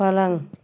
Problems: none marked